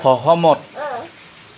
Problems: background sounds at intervals